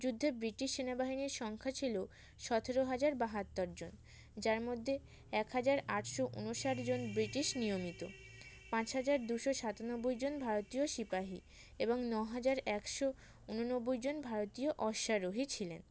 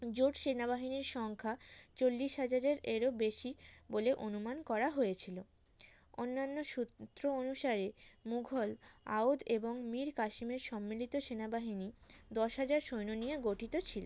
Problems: background sounds at intervals